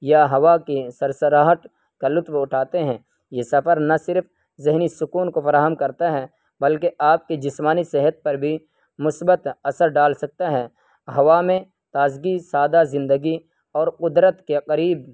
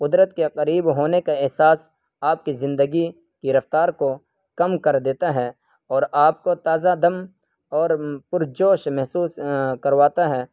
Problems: none marked